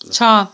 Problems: none marked